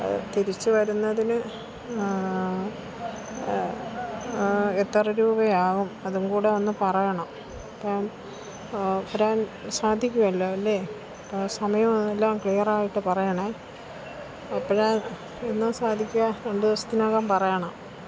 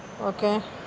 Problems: constant background noise, low volume